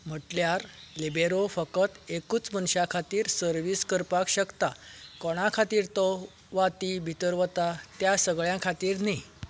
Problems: background sounds at intervals